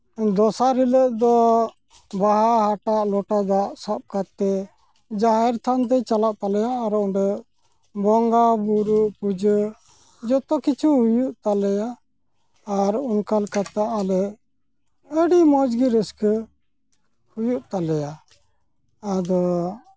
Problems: background sounds at intervals